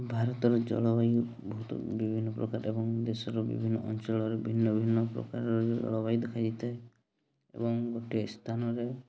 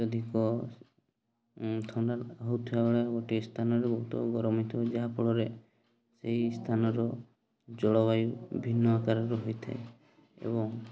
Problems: constant background noise, continuous background conversations